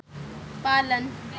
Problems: constant background noise